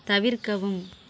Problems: background sounds at intervals